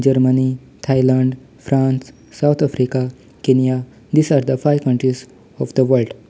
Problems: background sounds at intervals